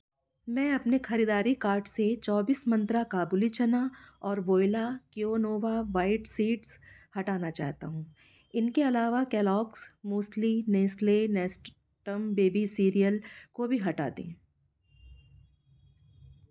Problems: none marked